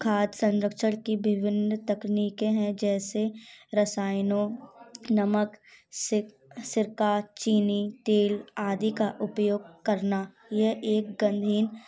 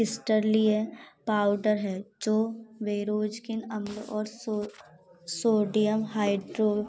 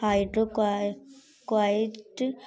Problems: none marked